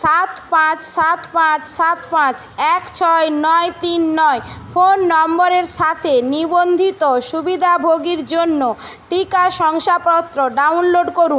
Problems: none marked